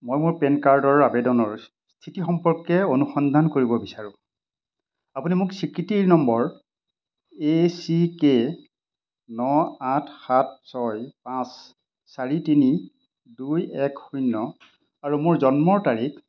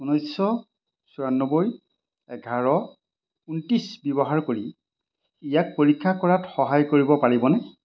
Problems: constant background noise